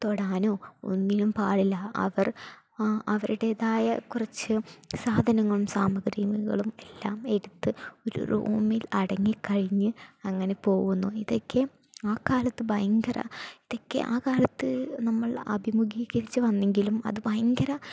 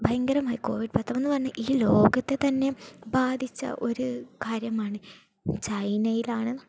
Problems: none marked